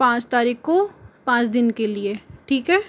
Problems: none marked